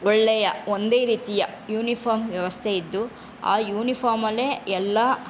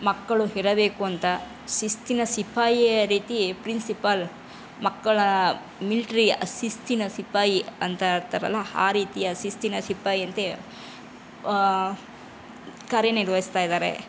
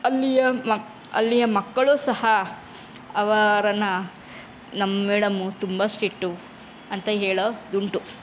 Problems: none marked